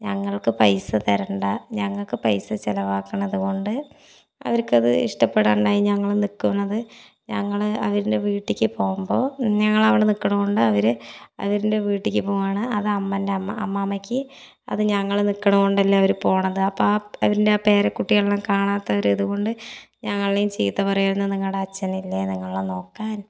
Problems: none marked